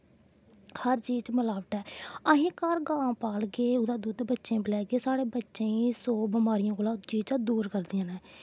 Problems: none marked